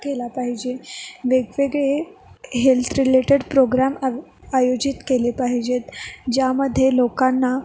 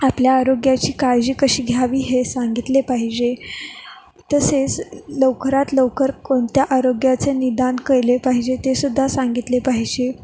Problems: none marked